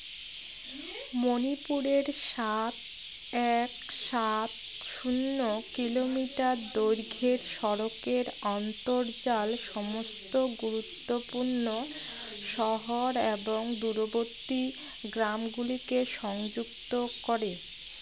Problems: constant background noise, background conversations at intervals